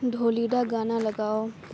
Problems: low volume